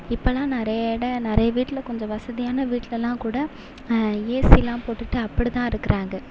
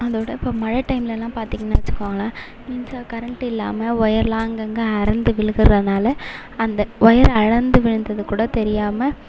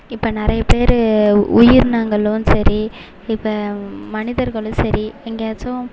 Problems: continuous background conversations